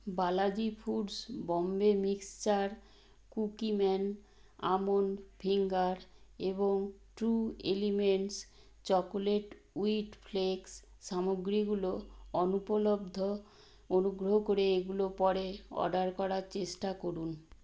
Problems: low volume